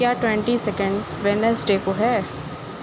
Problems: constant background noise